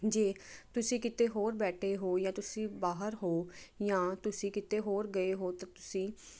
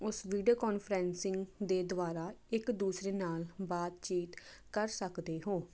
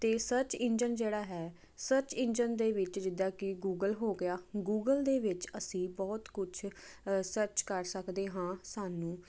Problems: constant background noise